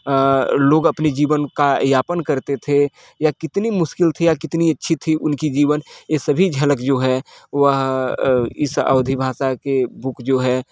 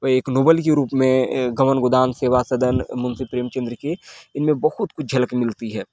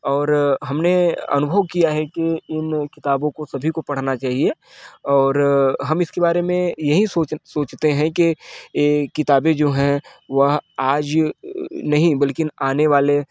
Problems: constant background noise, background conversations at intervals